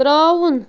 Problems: constant background noise